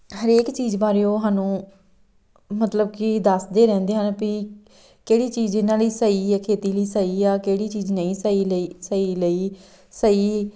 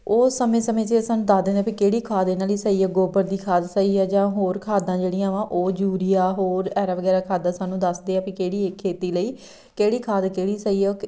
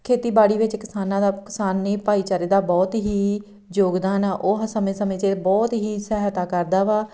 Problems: none marked